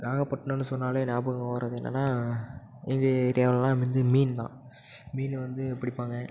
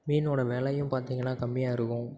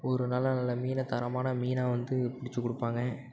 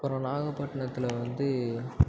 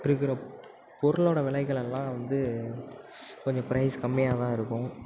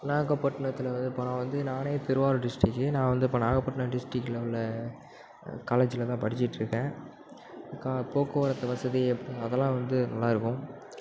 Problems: constant background noise, background conversations at intervals